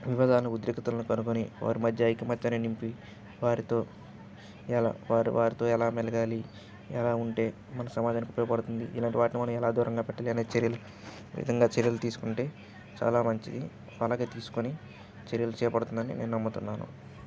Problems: continuous background conversations